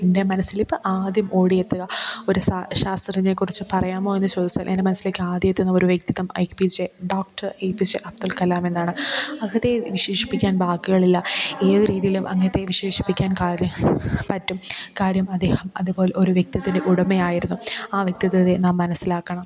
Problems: background sounds at intervals